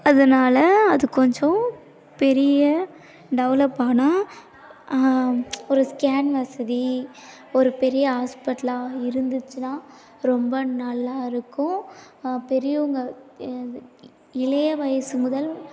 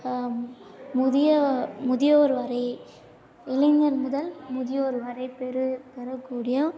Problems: low volume